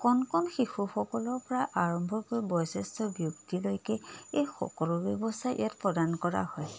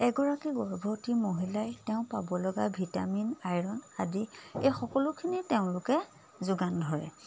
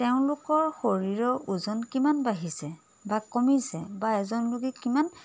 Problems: none marked